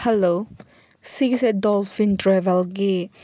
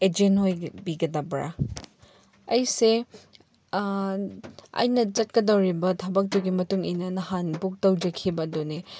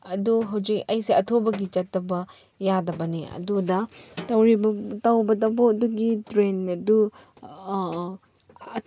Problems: background sounds at intervals